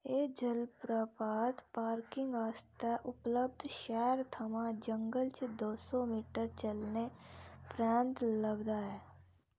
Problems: low volume